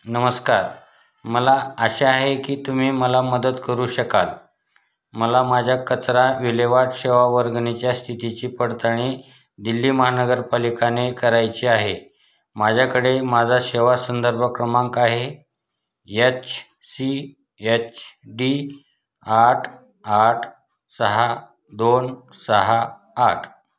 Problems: background sounds at intervals